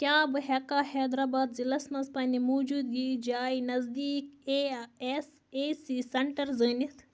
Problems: constant background noise